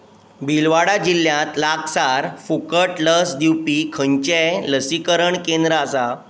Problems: none marked